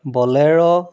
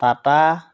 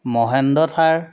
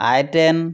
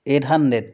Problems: constant background noise, background conversations at intervals